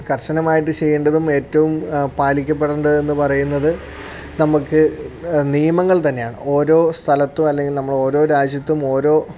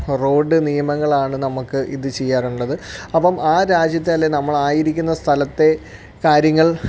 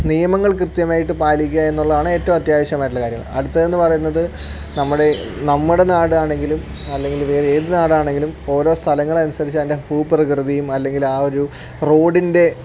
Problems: none marked